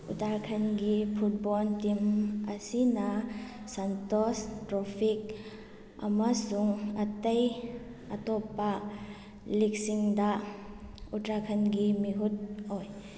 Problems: background sounds at intervals